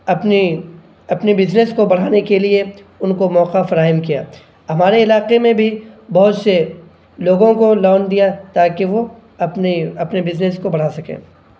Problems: none marked